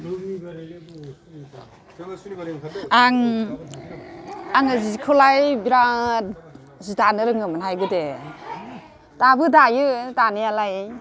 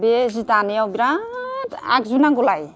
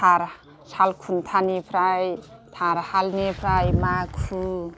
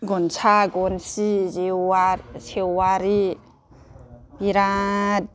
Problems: none marked